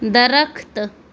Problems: constant background noise